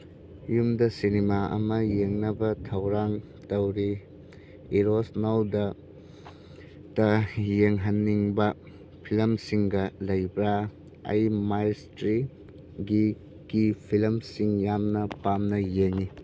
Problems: none marked